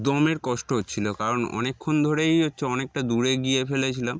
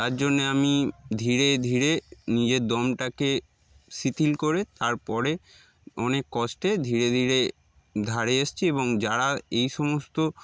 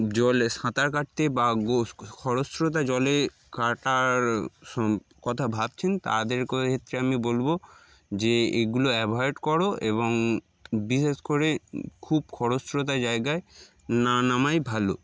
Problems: background sounds at intervals